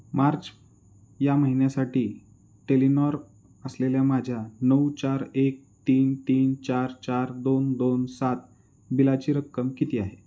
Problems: none marked